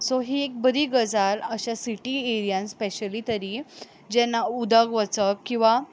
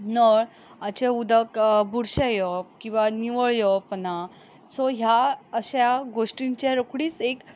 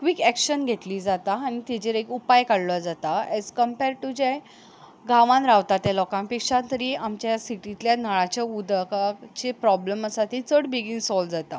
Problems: background sounds at intervals